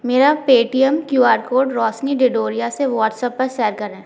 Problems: background sounds at intervals